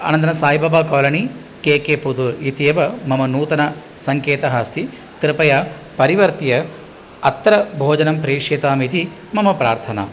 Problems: none marked